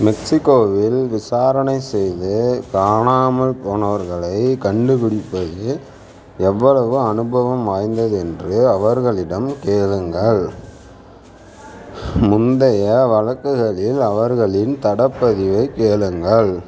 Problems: none marked